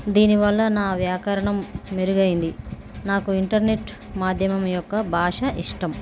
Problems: constant background noise, background conversations at intervals